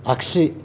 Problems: none marked